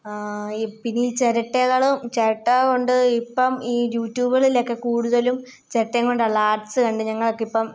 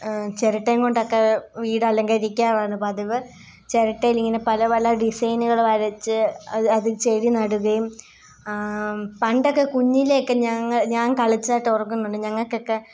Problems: none marked